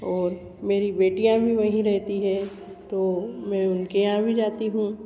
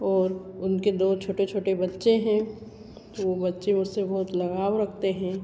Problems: constant background noise, echo